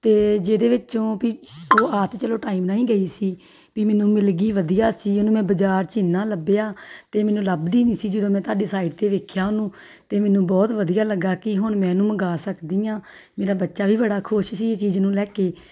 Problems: none marked